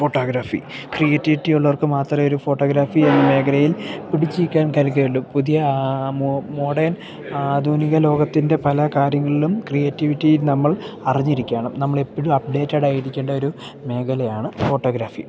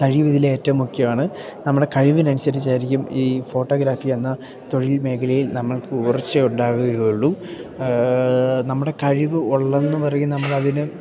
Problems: none marked